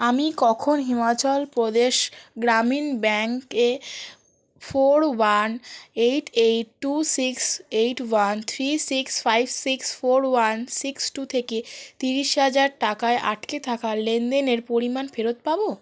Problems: none marked